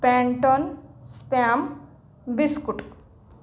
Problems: background sounds at intervals